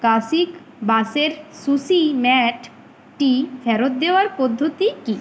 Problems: constant background noise